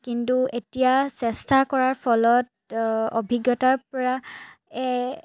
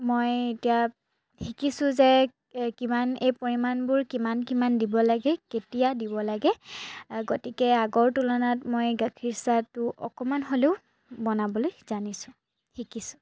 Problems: none marked